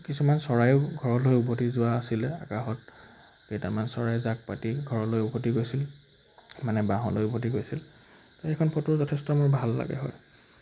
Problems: background sounds at intervals